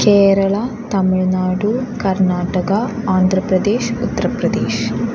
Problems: constant background noise